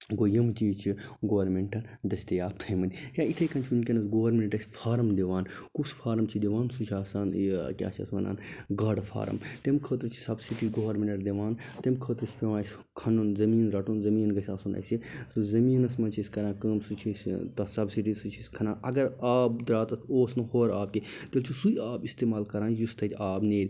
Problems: none marked